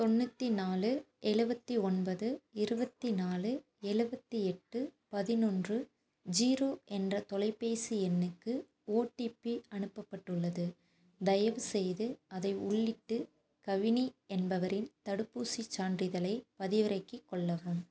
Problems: constant background noise